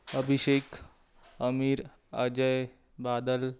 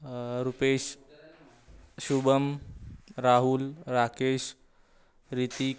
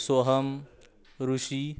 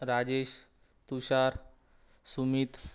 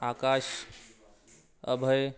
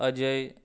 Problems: none marked